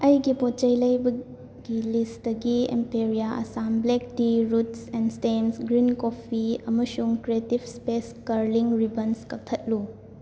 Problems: constant background noise